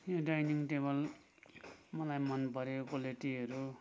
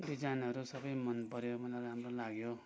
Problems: none marked